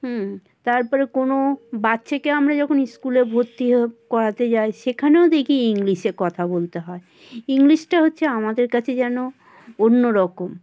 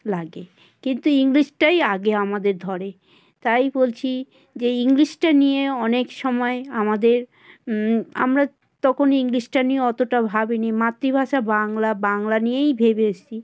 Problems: constant background noise, background conversations at intervals